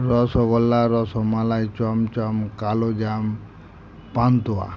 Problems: constant background noise